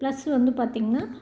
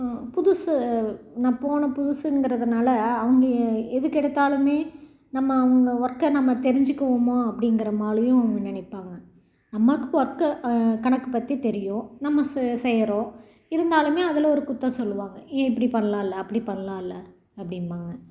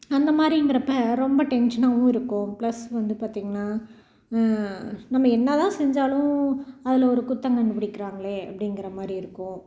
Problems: none marked